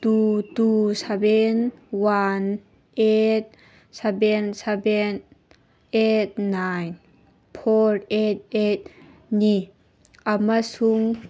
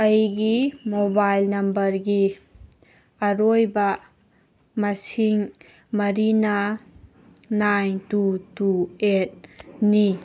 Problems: background sounds at intervals